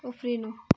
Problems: background sounds at intervals